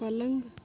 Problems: none marked